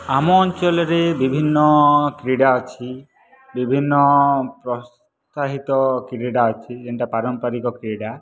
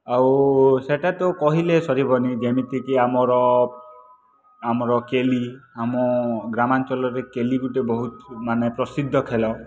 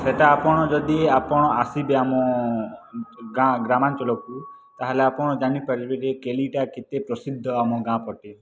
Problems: background sounds at intervals